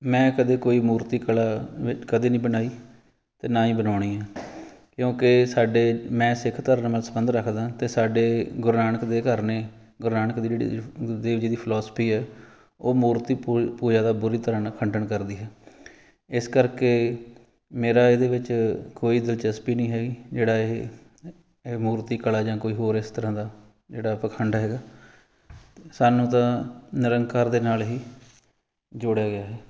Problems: background sounds at intervals